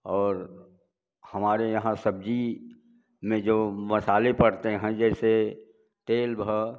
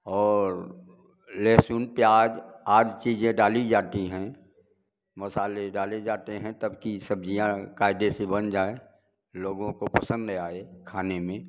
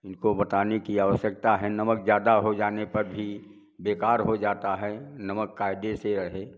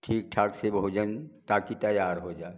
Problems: none marked